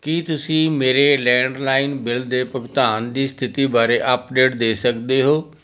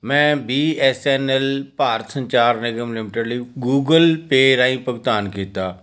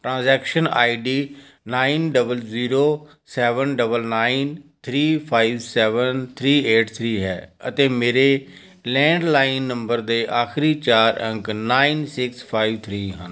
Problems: none marked